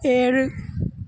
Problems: constant background noise